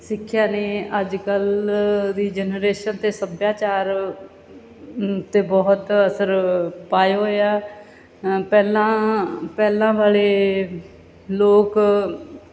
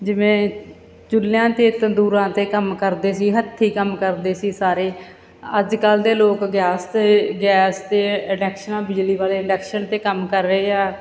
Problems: background sounds at intervals